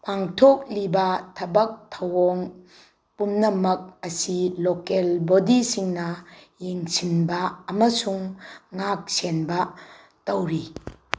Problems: constant background noise